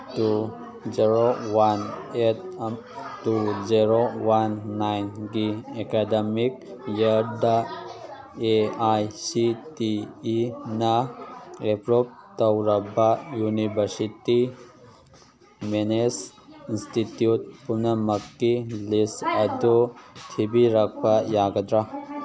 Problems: background conversations at intervals